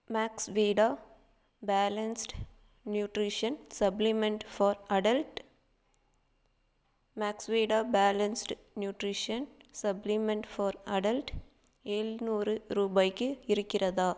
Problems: none marked